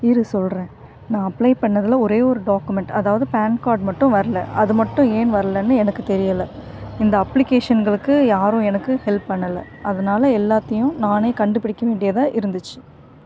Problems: constant background noise